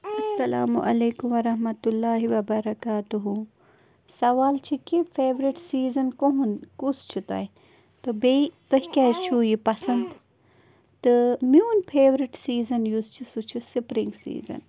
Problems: background sounds at intervals, background conversations at intervals